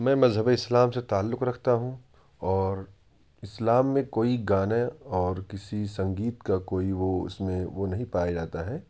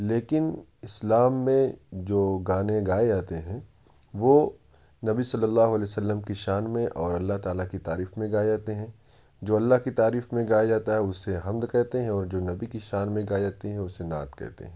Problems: none marked